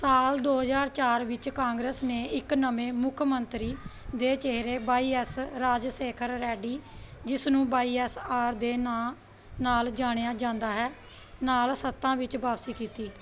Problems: background sounds at intervals, background conversations at intervals